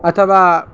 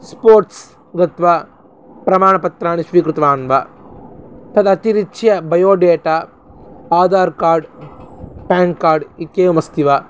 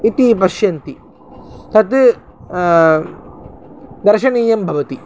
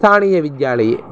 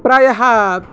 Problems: constant background noise